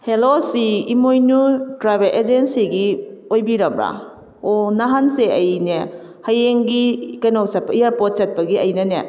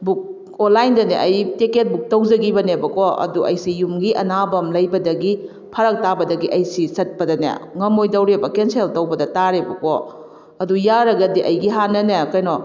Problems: none marked